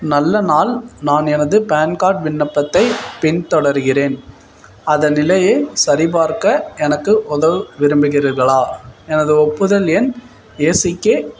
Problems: none marked